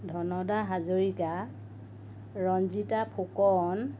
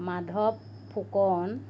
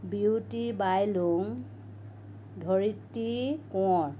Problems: constant background noise